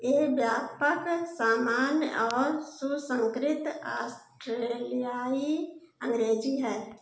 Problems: background sounds at intervals, echo